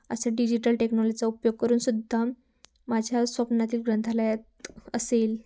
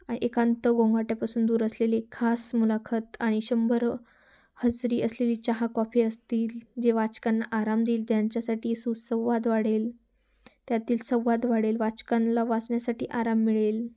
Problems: background sounds at intervals